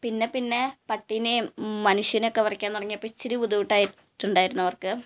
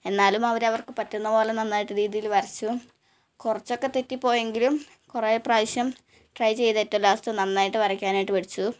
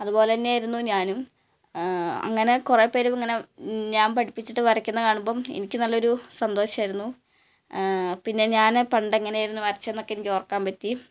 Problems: none marked